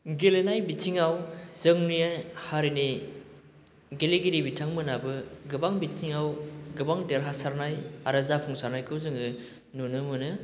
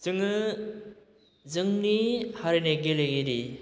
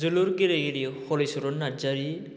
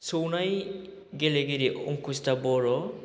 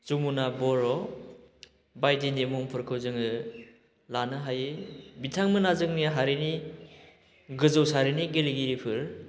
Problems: constant background noise